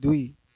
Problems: background conversations at intervals